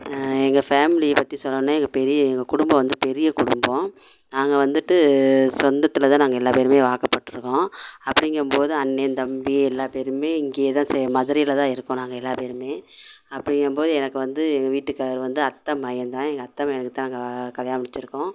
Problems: constant background noise